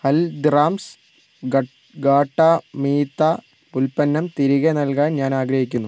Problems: background sounds at intervals